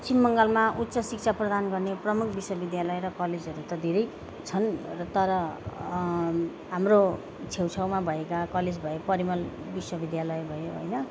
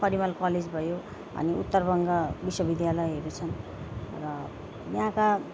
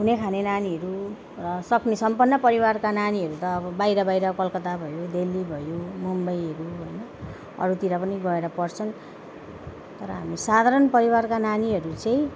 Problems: constant background noise